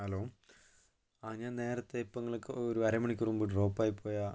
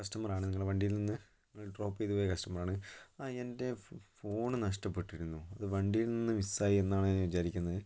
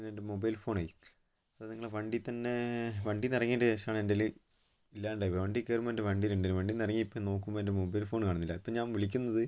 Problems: none marked